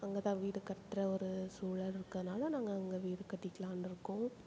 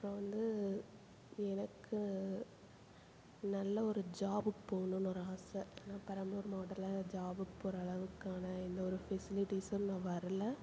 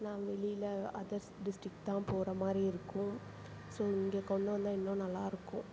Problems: constant background noise, low volume